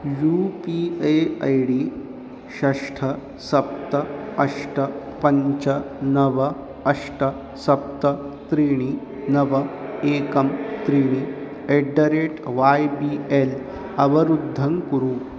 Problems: constant background noise